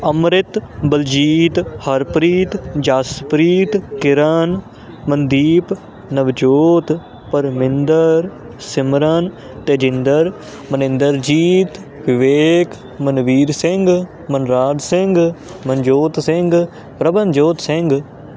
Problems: constant background noise